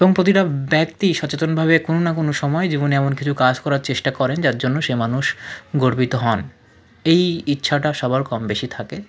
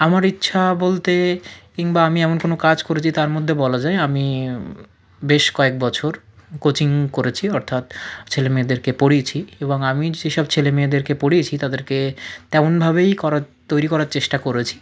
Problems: background sounds at intervals, low volume